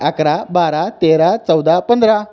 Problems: none marked